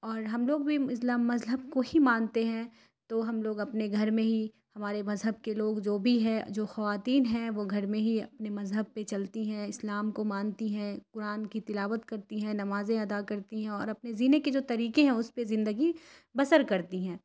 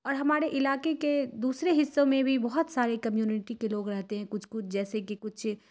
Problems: none marked